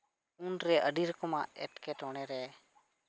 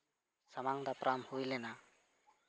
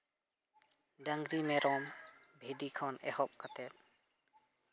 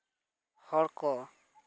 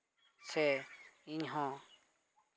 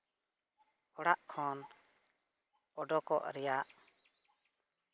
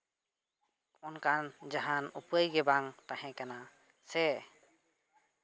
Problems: background sounds at intervals, background conversations at intervals